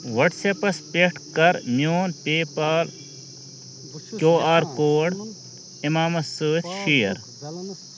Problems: constant background noise